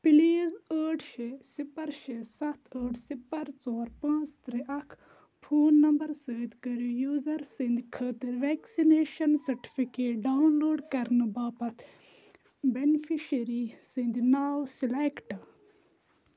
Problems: constant background noise